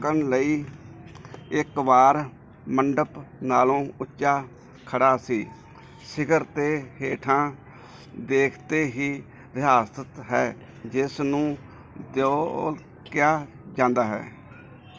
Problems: none marked